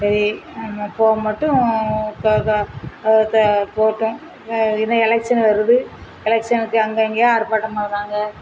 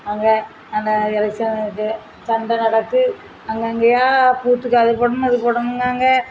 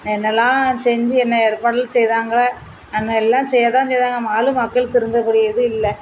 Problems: constant background noise